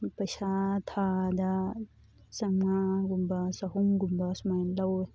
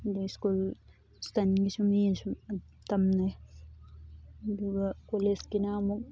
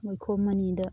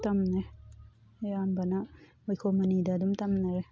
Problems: background sounds at intervals, background conversations at intervals